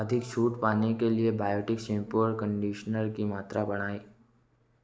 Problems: constant background noise